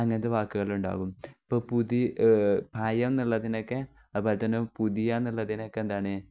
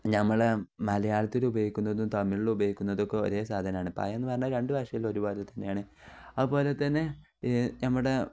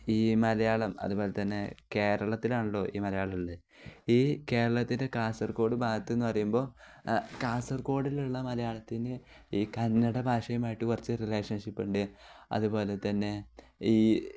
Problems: none marked